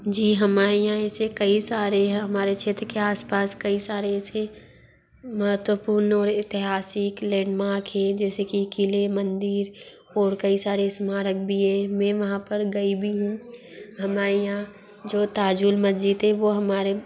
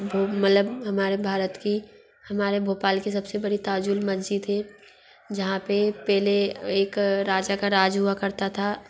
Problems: constant background noise, background conversations at intervals